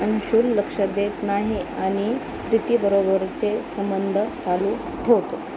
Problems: constant background noise